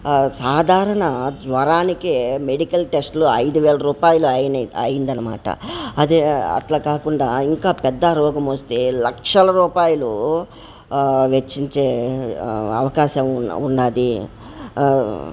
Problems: background sounds at intervals